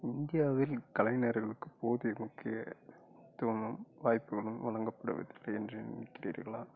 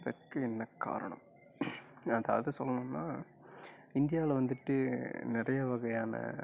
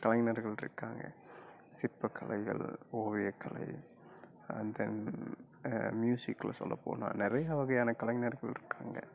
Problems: none marked